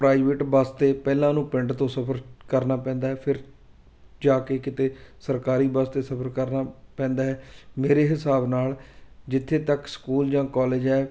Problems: constant background noise